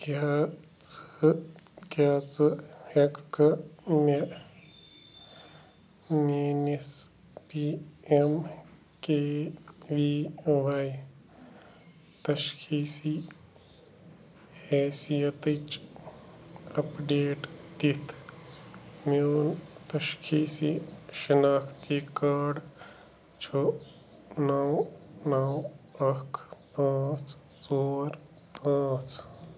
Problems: constant background noise